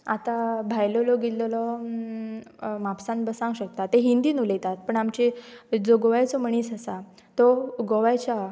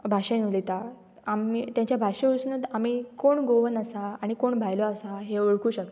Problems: none marked